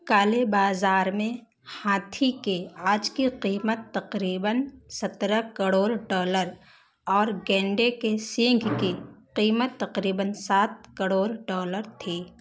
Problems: constant background noise